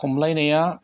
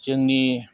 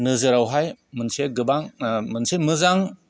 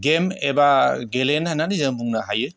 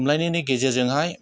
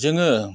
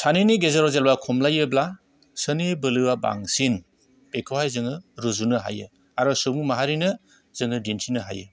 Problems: none marked